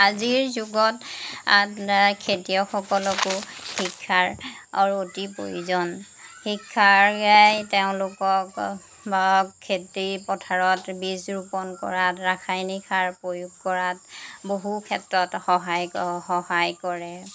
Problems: background sounds at intervals